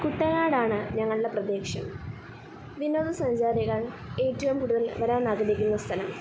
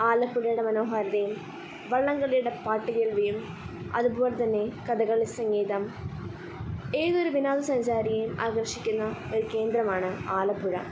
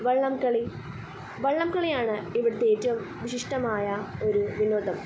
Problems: constant background noise, low volume